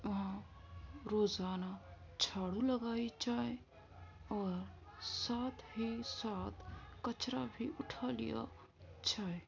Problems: constant background noise, low volume